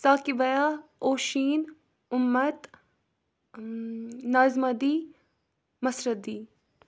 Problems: none marked